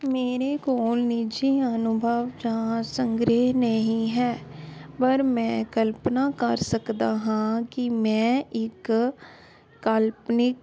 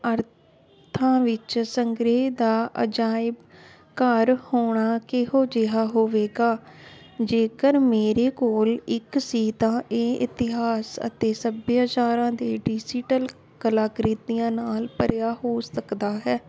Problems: constant background noise